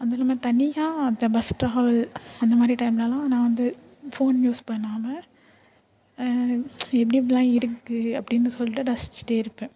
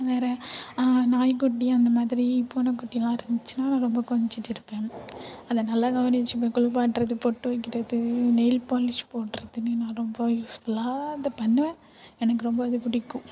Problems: none marked